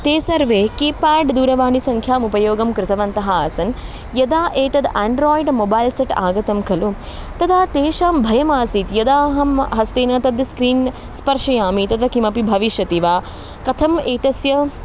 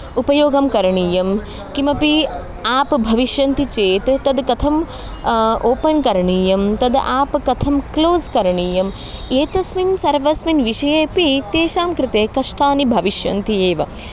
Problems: background sounds at intervals